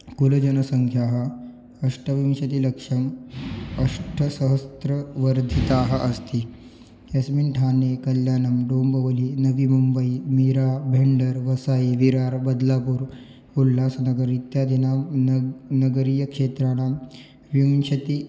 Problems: background sounds at intervals